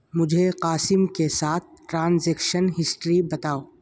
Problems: constant background noise